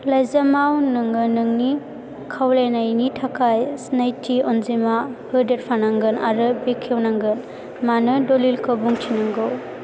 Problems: constant background noise